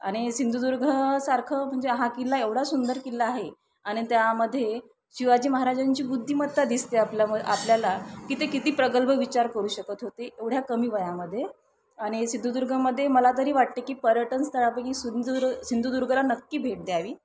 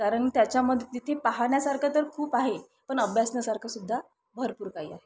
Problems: none marked